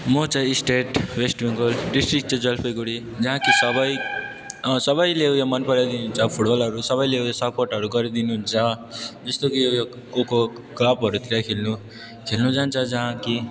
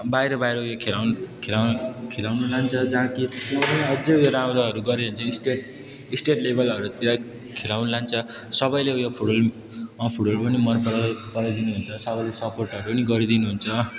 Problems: background sounds at intervals